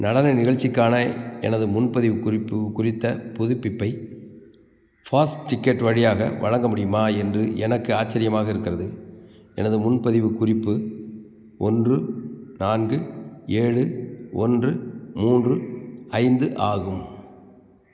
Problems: background sounds at intervals